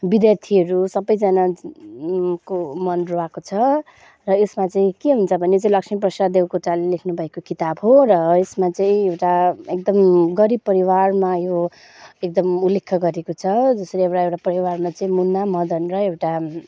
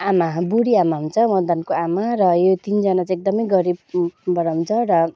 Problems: none marked